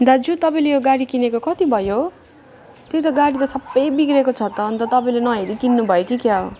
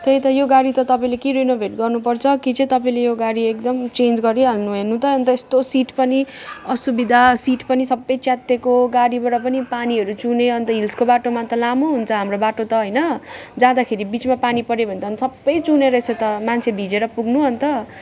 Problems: constant background noise, background conversations at intervals